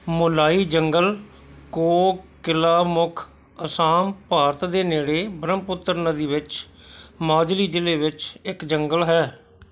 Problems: background sounds at intervals